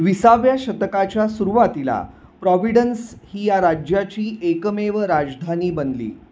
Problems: constant background noise